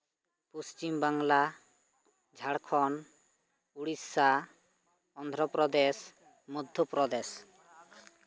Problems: constant background noise